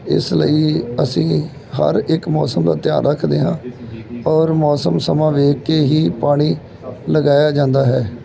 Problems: background sounds at intervals, background conversations at intervals